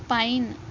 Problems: constant background noise